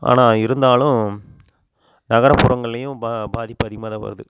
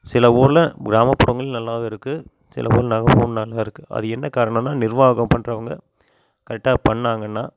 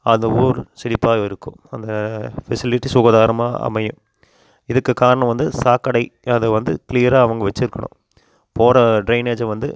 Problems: constant background noise